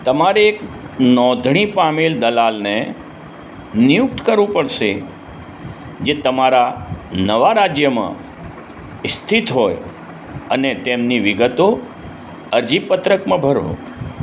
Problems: background sounds at intervals